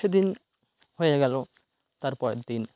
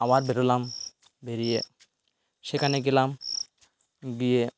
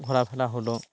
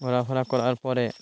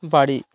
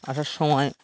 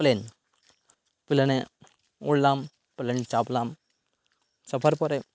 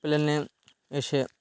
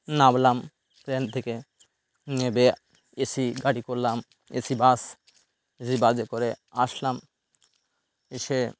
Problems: background sounds at intervals